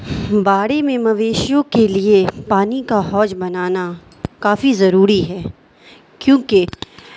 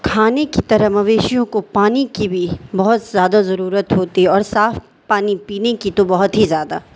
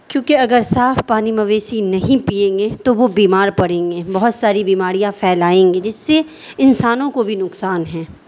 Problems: constant background noise